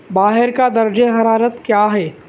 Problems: none marked